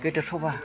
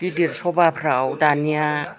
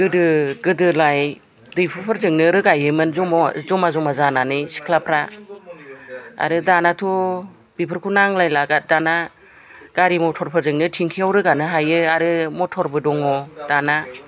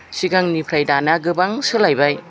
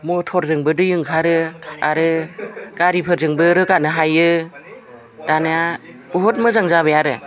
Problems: background conversations at intervals